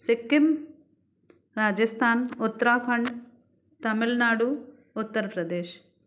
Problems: none marked